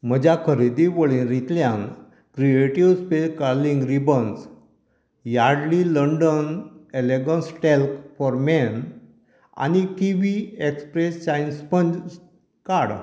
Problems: constant background noise